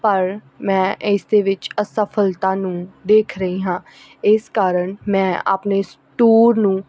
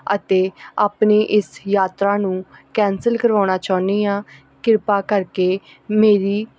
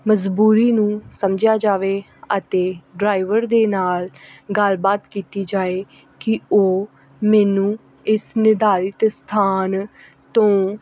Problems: none marked